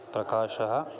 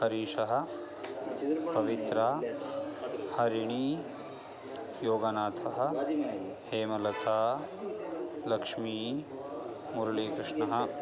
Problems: constant background noise